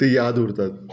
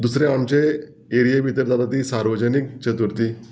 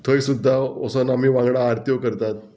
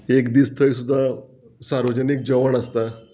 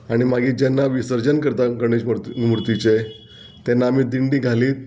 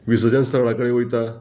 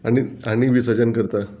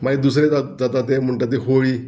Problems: background sounds at intervals